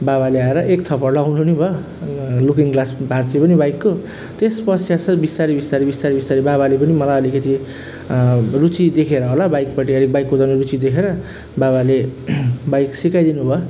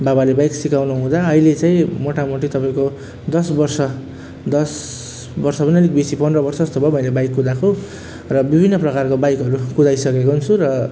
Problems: none marked